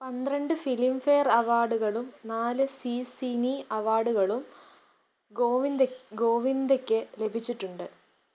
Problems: none marked